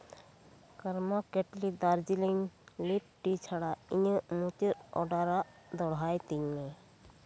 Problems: constant background noise